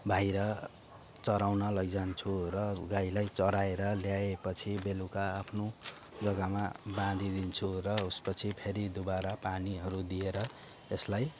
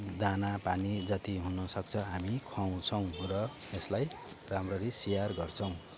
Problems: none marked